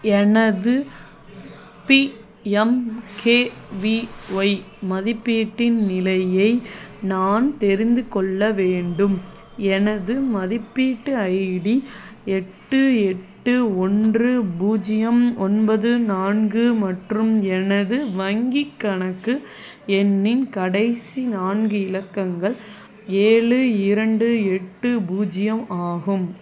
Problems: none marked